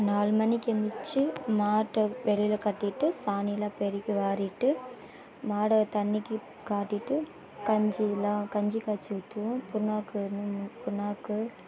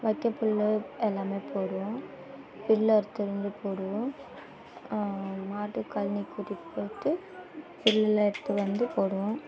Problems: none marked